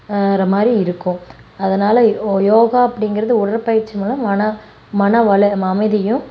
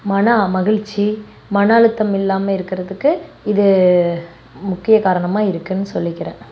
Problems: none marked